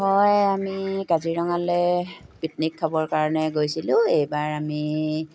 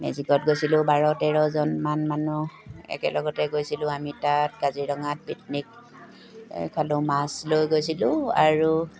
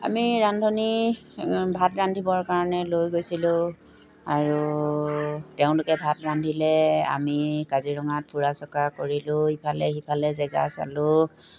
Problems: background sounds at intervals